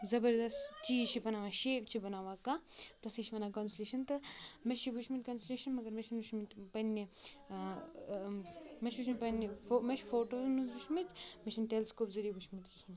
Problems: continuous background conversations